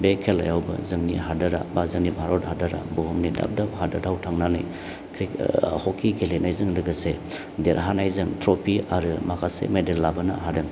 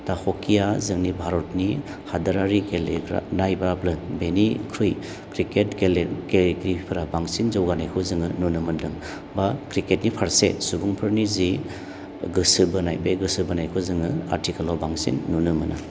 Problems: low volume